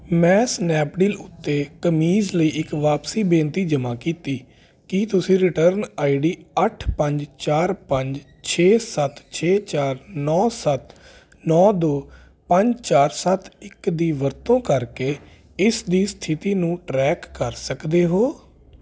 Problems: constant background noise